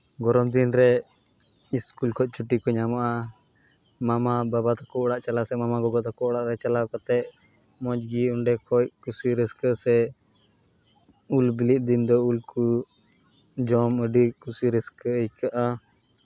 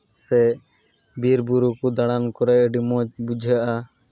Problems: background sounds at intervals